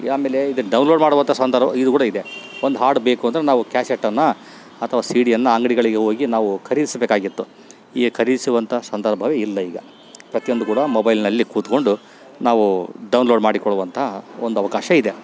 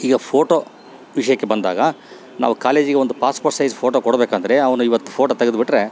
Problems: background sounds at intervals